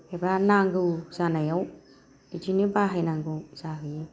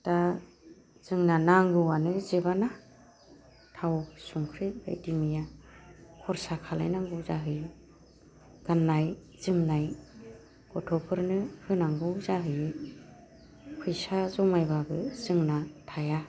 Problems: low volume